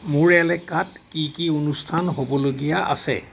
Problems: none marked